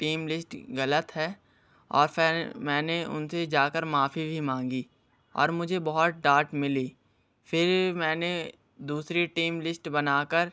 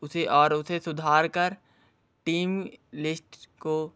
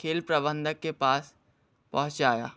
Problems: background sounds at intervals